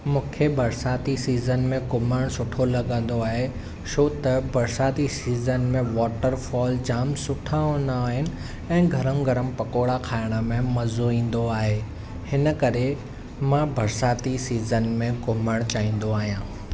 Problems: none marked